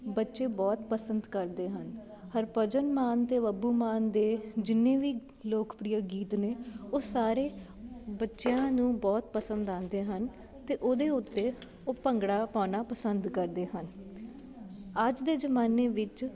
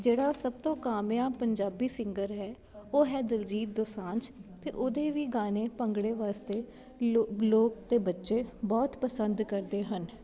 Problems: background sounds at intervals, background conversations at intervals